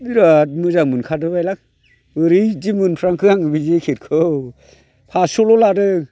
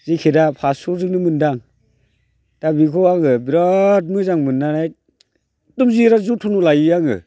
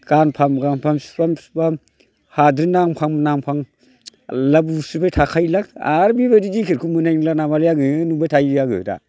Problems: constant background noise